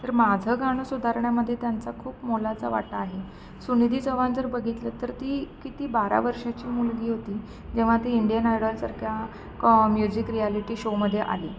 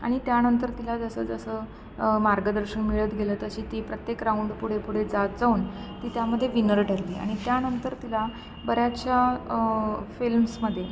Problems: constant background noise